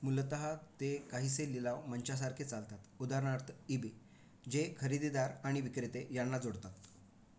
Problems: constant background noise